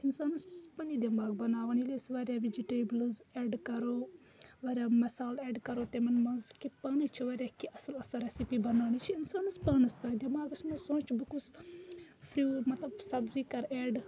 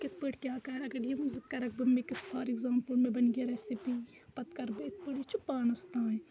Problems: constant background noise, background conversations at intervals